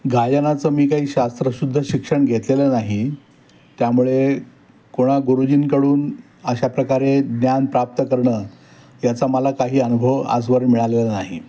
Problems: background sounds at intervals